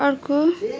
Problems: background sounds at intervals